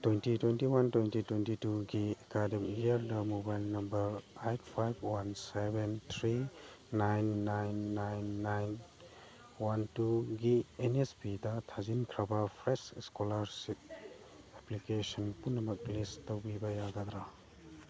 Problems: constant background noise